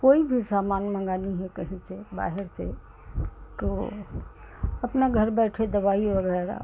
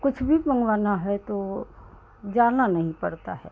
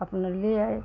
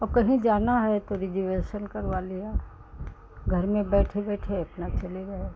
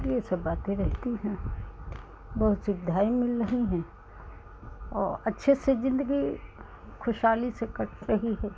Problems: constant background noise